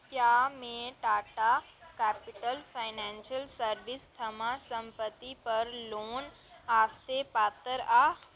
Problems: none marked